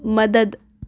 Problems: background sounds at intervals